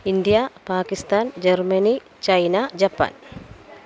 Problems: constant background noise